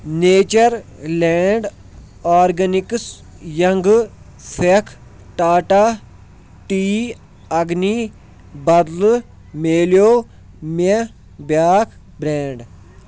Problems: background sounds at intervals